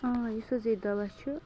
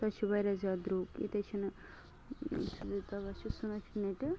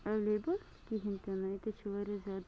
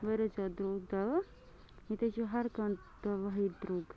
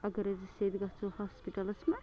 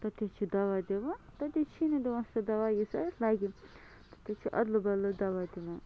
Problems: constant background noise